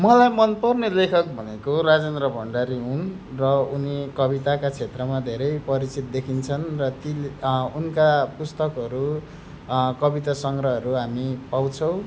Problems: background sounds at intervals